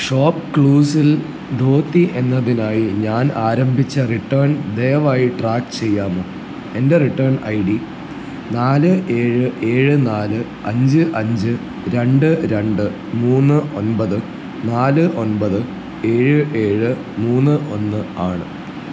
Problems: low volume